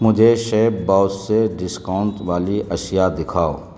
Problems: constant background noise